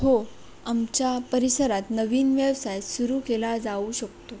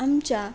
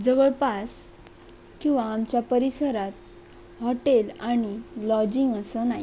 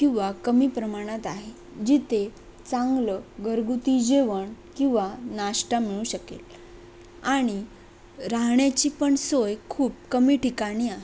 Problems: constant background noise